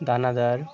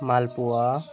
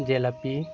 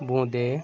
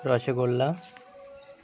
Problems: constant background noise